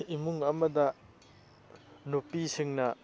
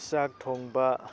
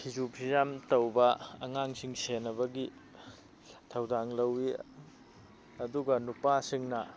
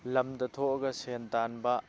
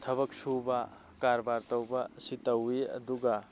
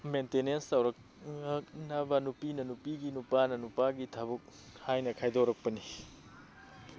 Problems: background sounds at intervals